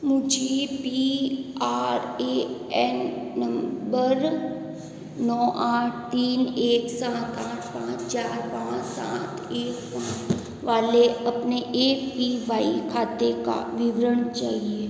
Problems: echo